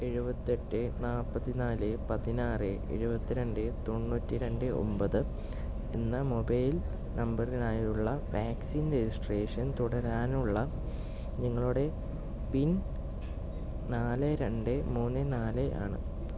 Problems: low volume